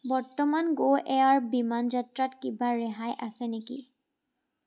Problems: constant background noise